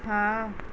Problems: constant background noise